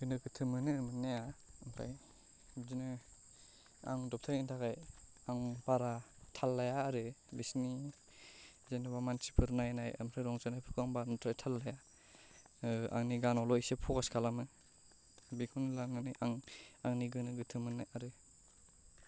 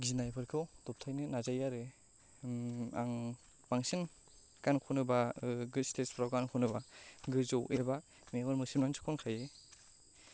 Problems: low volume